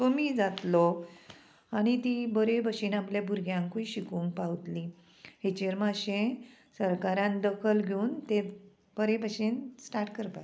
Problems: constant background noise